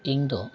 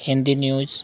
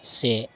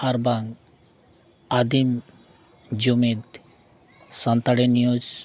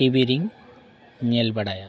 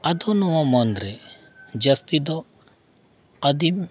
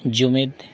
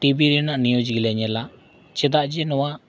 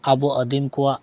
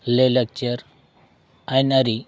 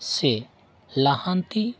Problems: none marked